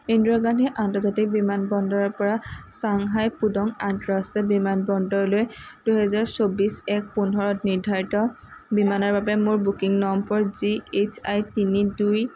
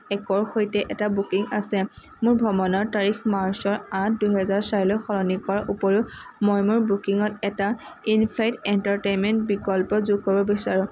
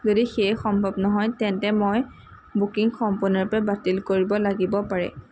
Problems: constant background noise